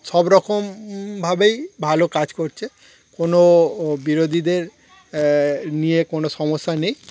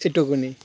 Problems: none marked